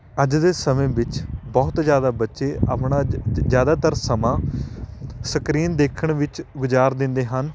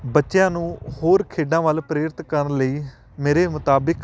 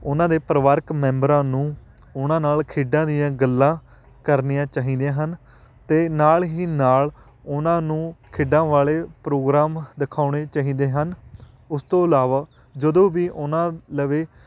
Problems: none marked